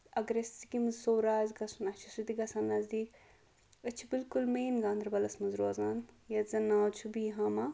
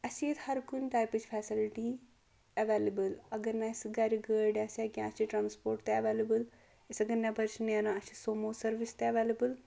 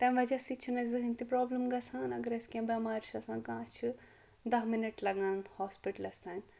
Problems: none marked